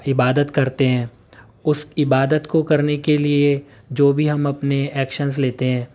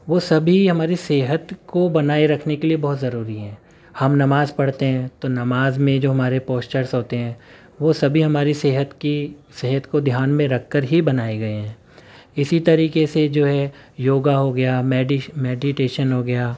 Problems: background sounds at intervals